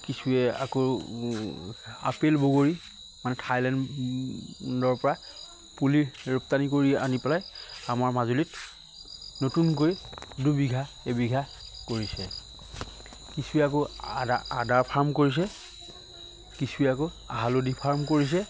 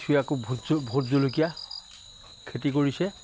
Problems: constant background noise